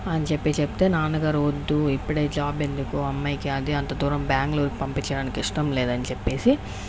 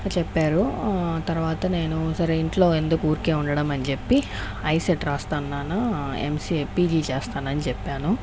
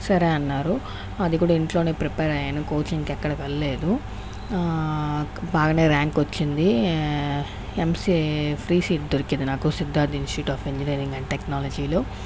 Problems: none marked